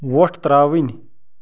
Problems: background sounds at intervals